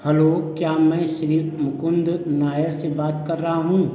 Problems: none marked